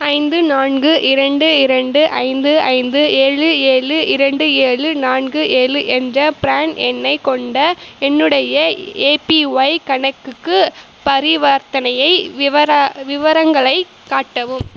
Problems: none marked